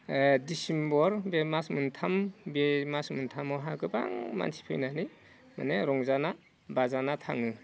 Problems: low volume